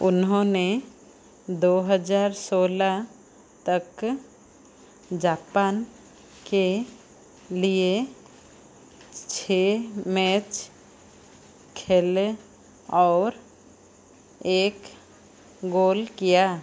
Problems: none marked